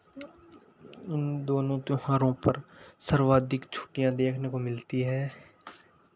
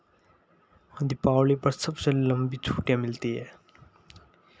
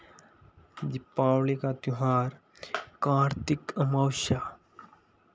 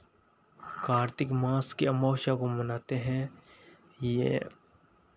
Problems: none marked